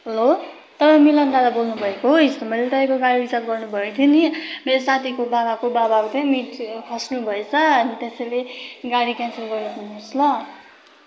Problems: none marked